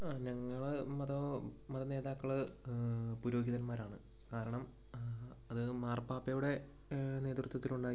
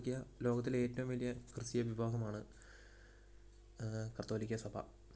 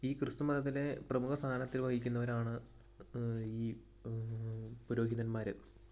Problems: background sounds at intervals, low volume